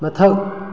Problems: background sounds at intervals